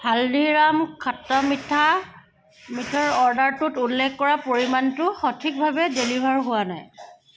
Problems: constant background noise